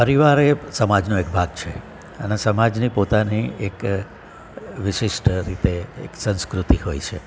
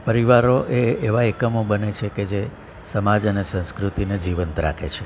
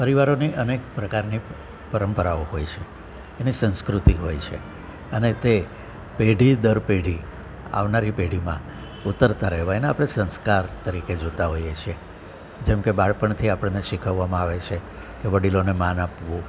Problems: constant background noise